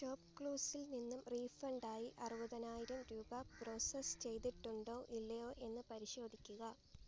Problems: background sounds at intervals